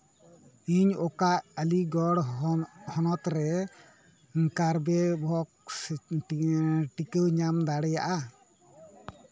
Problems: background conversations at intervals